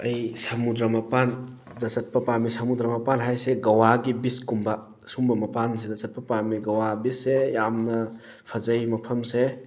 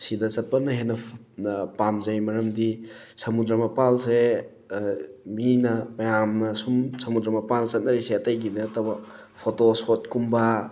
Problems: background sounds at intervals